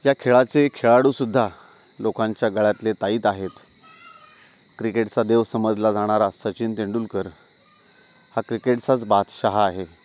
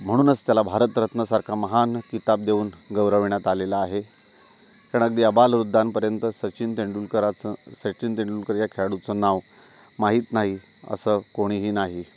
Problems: constant background noise, continuous background conversations